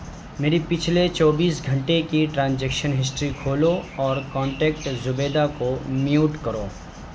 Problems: none marked